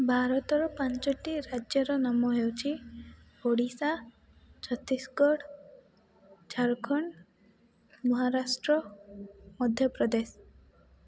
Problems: low volume